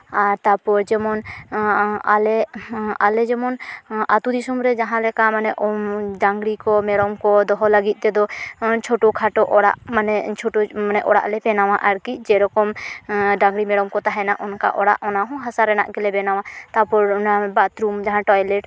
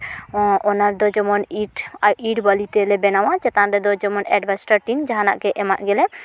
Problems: none marked